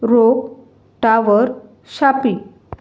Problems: none marked